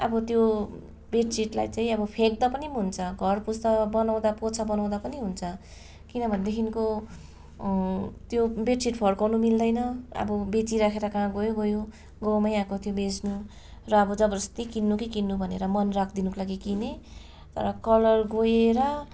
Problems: none marked